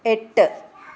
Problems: background sounds at intervals